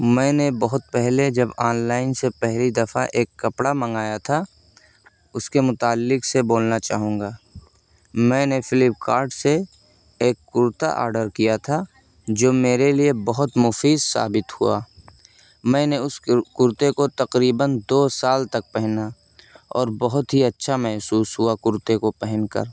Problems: background sounds at intervals, background conversations at intervals